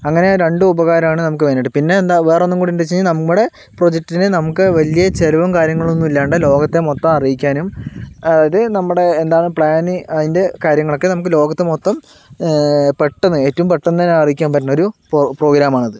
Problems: none marked